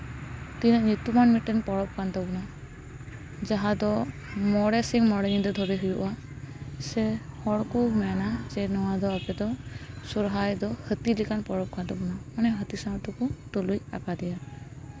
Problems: continuous background conversations